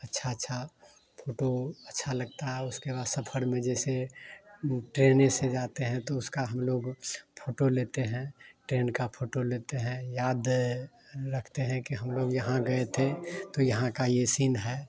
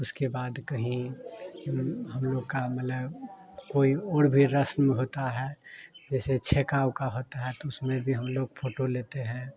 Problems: none marked